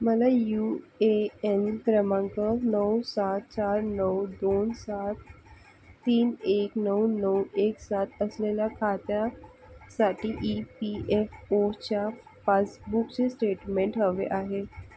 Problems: constant background noise